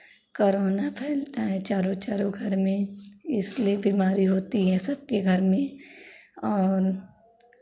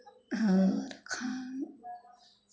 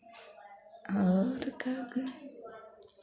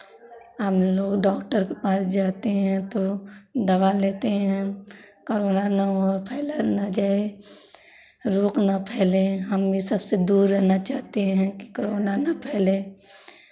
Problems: constant background noise, continuous background conversations